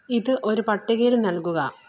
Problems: low volume